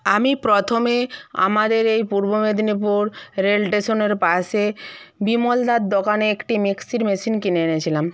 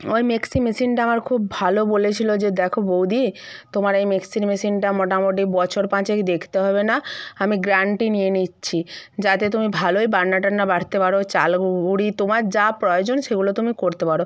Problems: none marked